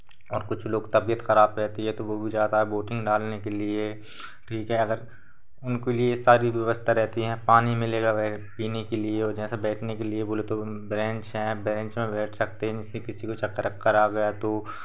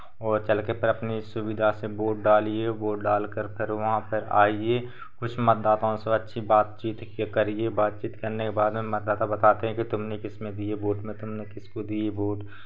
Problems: none marked